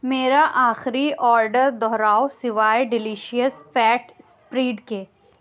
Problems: none marked